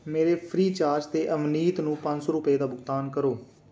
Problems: constant background noise